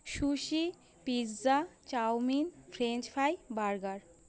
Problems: constant background noise